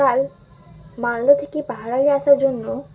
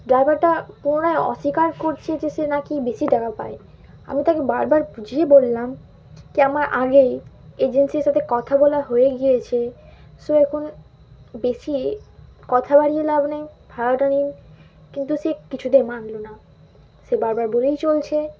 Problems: background sounds at intervals